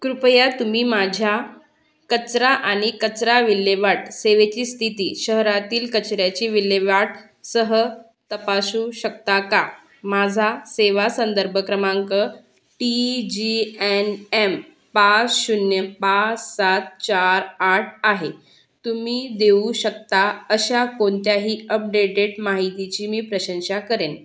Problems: none marked